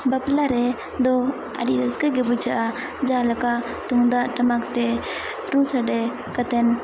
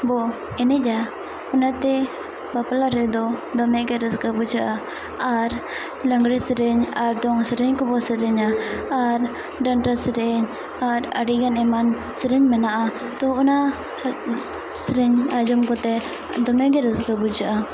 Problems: constant background noise